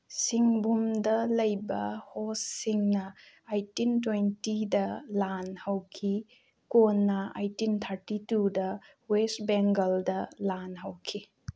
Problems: background sounds at intervals